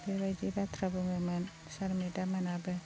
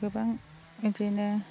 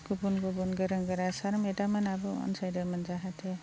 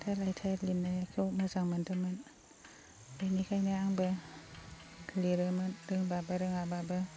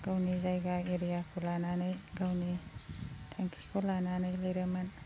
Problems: constant background noise